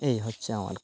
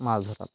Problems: none marked